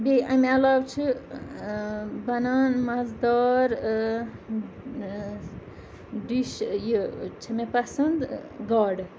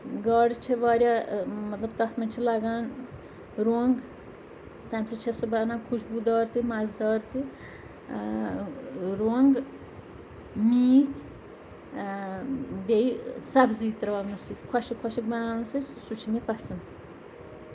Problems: background sounds at intervals, background conversations at intervals